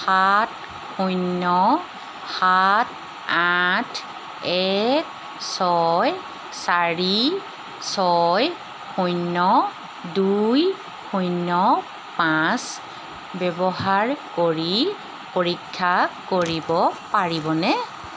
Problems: none marked